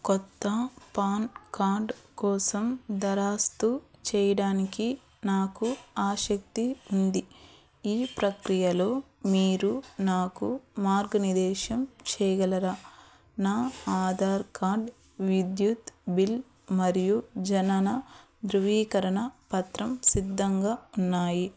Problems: background sounds at intervals